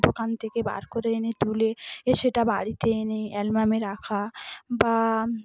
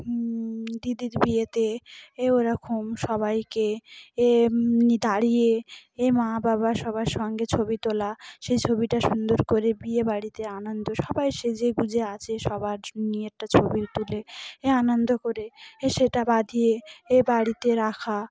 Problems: constant background noise, background conversations at intervals